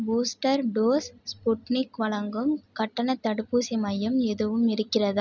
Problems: none marked